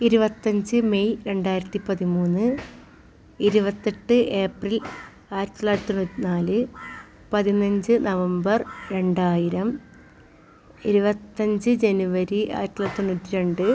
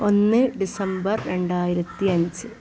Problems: background sounds at intervals